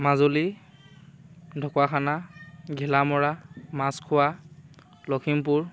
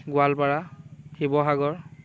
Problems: constant background noise